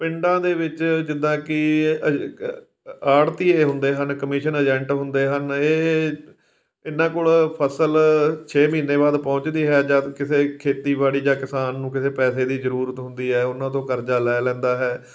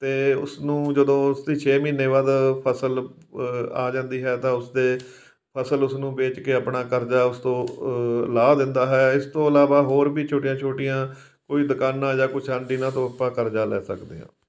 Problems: background sounds at intervals